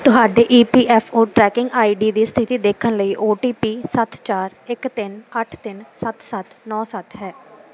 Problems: none marked